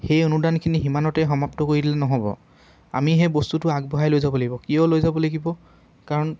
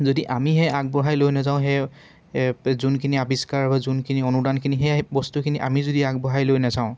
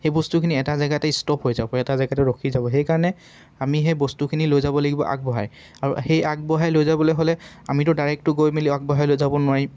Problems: constant background noise